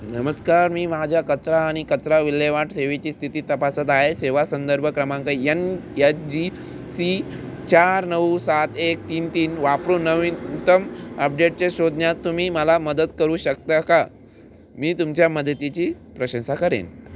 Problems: constant background noise